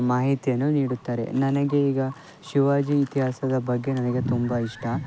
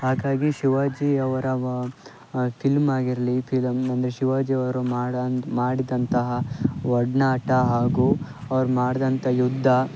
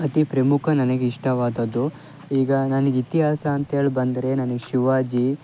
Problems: background sounds at intervals, low volume